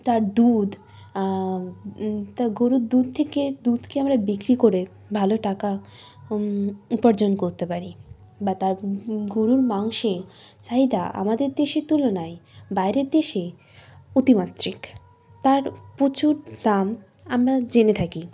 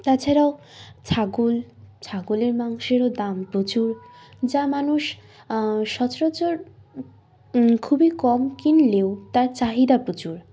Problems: background sounds at intervals